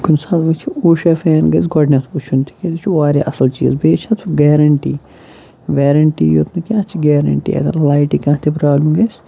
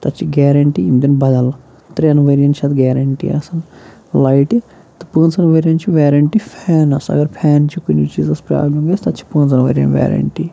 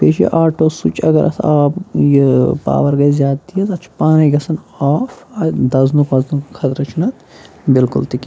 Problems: none marked